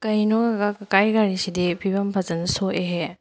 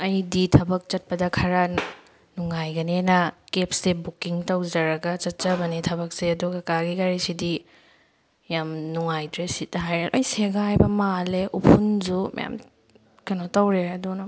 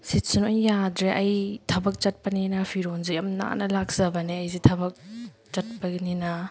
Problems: background sounds at intervals